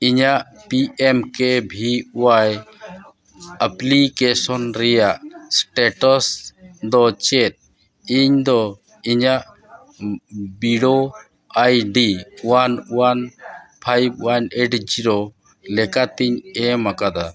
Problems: continuous background conversations